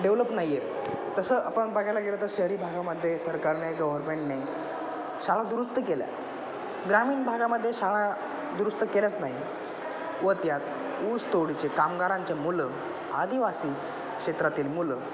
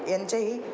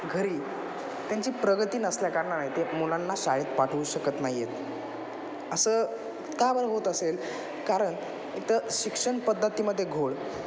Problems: constant background noise, continuous background conversations